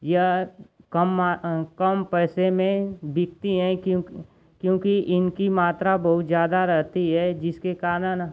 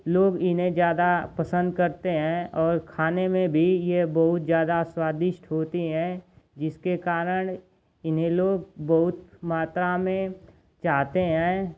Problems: none marked